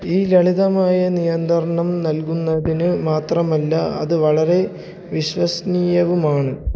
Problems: low volume